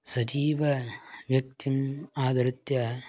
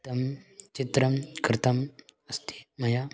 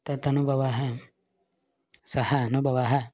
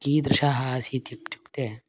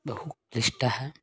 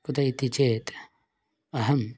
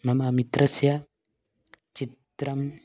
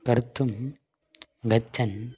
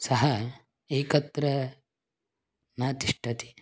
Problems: background sounds at intervals